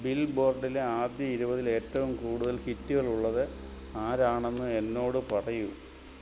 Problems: constant background noise